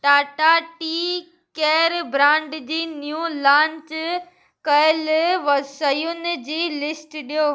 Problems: none marked